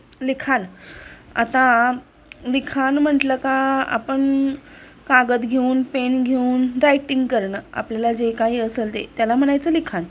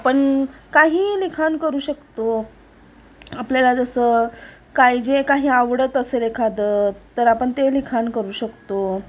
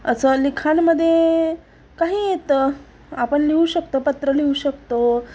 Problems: none marked